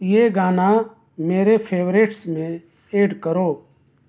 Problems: constant background noise